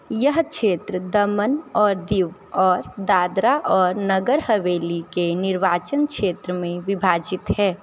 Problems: none marked